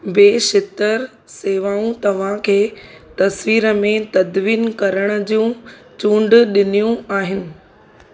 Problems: constant background noise